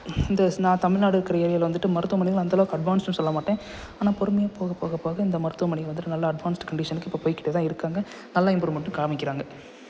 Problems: constant background noise